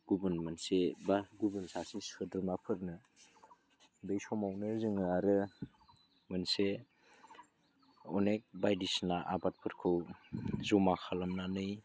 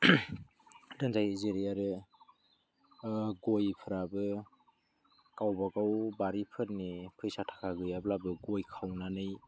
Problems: low volume